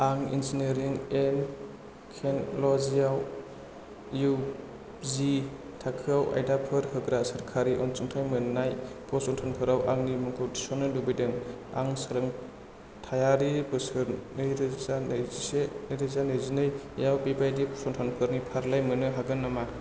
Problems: constant background noise